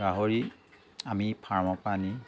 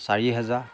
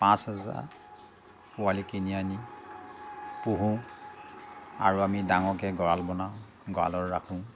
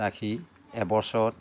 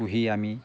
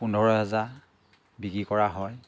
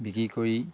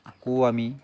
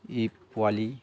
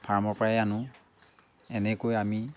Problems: constant background noise, background conversations at intervals